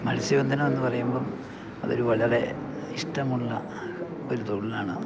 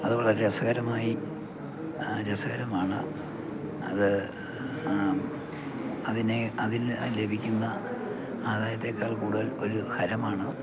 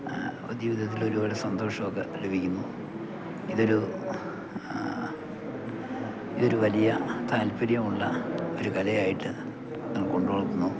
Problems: background sounds at intervals, low volume